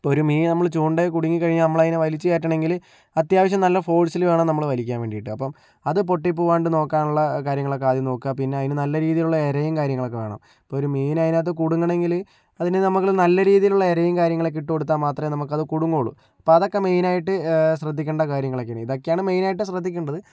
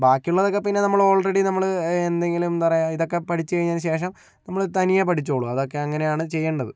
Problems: low volume